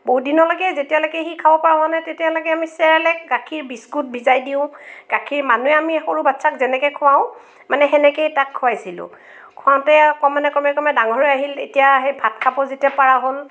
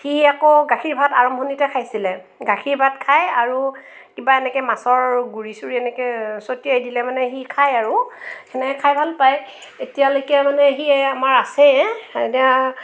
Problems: none marked